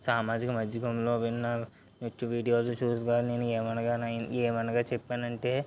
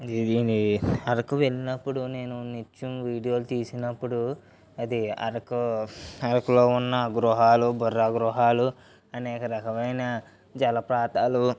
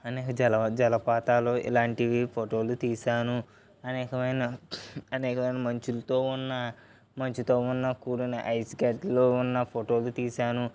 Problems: none marked